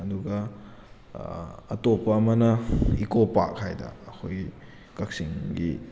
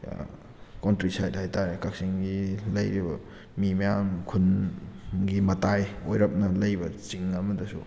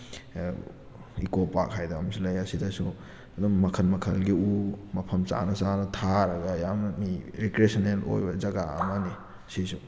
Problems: background sounds at intervals